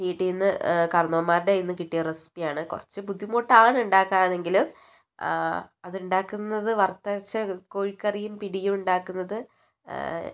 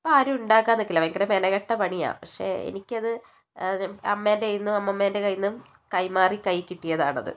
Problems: none marked